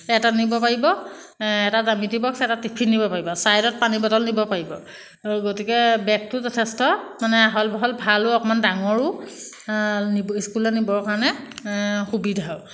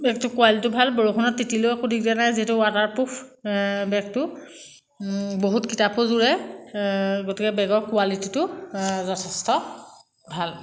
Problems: constant background noise